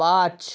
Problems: constant background noise